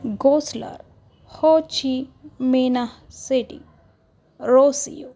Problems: none marked